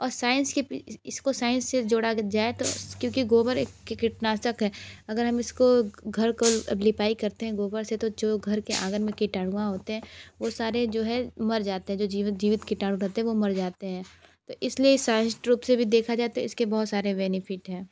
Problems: constant background noise, background conversations at intervals